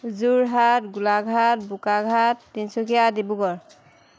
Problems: constant background noise